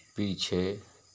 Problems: constant background noise